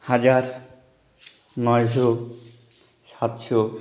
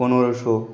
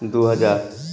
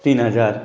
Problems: background sounds at intervals, background conversations at intervals